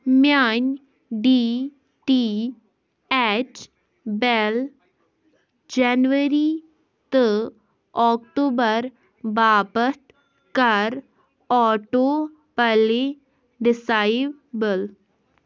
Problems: background sounds at intervals